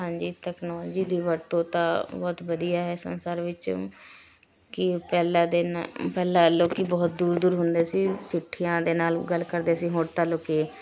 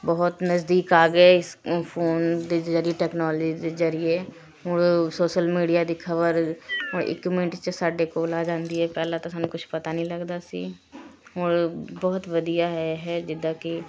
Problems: constant background noise, continuous background conversations